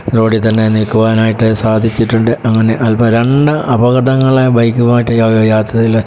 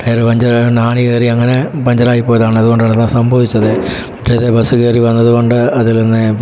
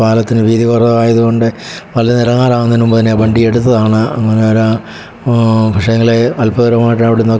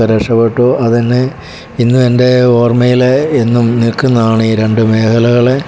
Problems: background sounds at intervals